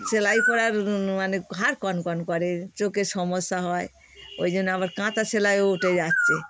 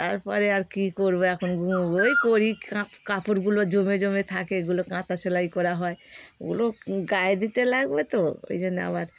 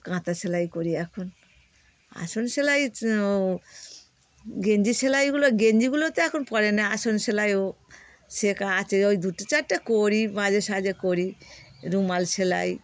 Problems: none marked